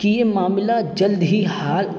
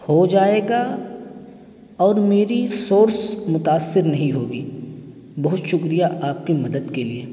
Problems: constant background noise